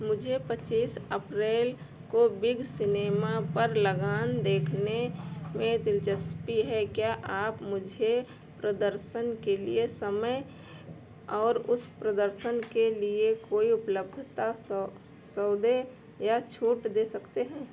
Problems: background sounds at intervals